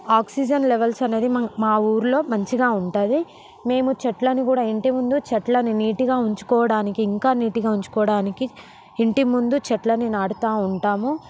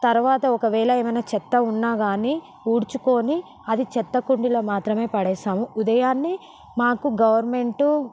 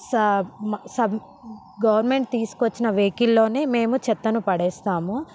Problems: background sounds at intervals